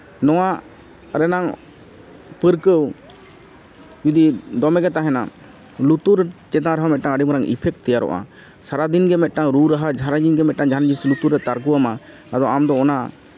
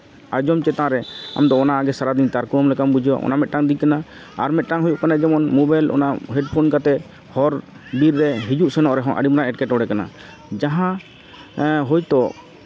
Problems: constant background noise, background conversations at intervals